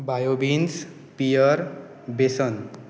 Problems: none marked